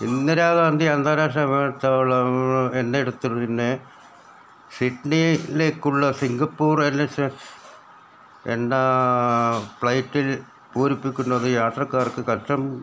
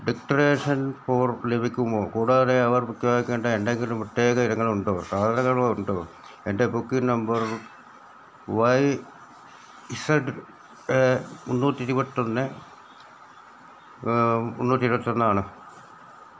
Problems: none marked